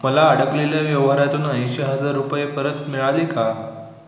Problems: constant background noise, echo